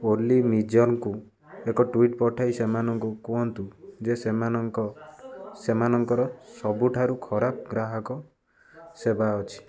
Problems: constant background noise, continuous background conversations